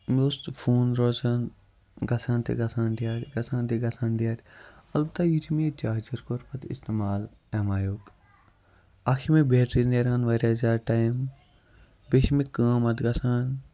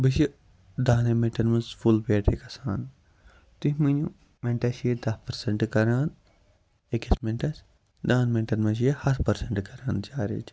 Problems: background sounds at intervals, low volume